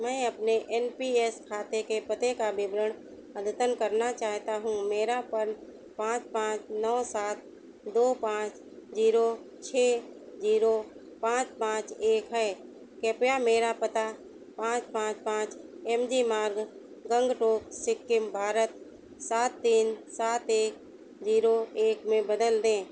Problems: constant background noise